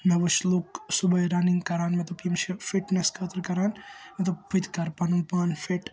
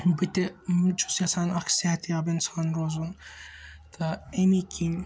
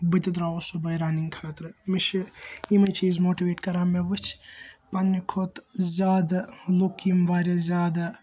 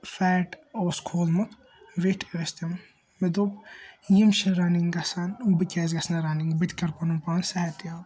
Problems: constant background noise